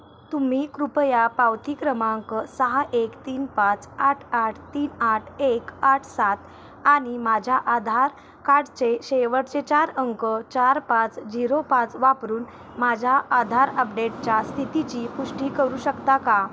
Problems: constant background noise